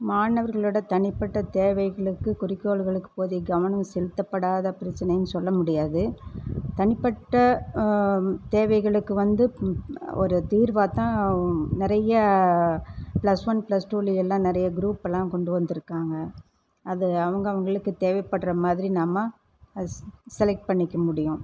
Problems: none marked